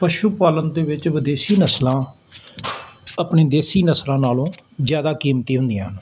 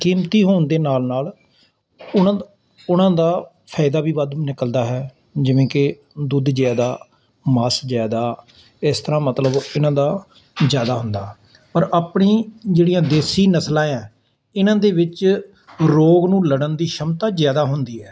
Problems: constant background noise